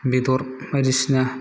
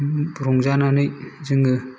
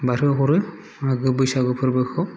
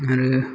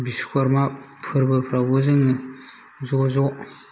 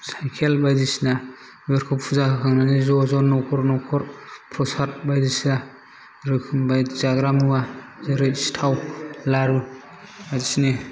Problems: background sounds at intervals, low volume